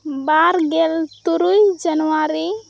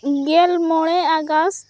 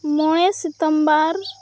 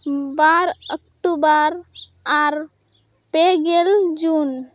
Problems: none marked